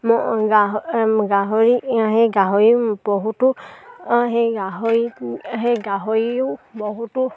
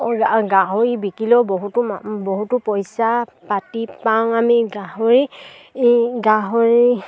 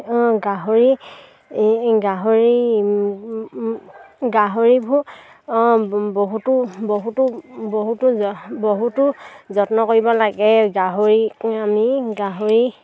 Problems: none marked